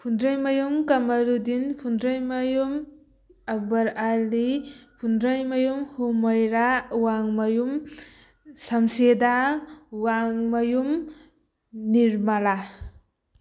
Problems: background sounds at intervals